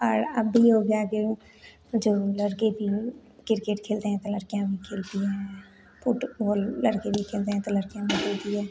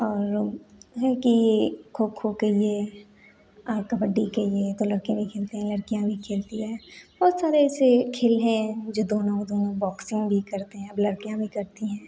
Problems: none marked